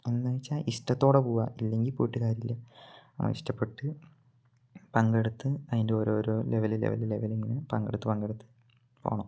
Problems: low volume